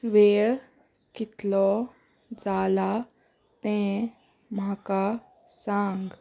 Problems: background sounds at intervals, background conversations at intervals